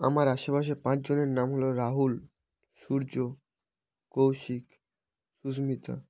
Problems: background sounds at intervals